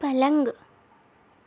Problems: constant background noise, low volume